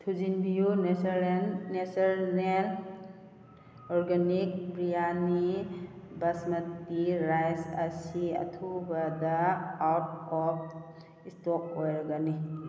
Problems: background sounds at intervals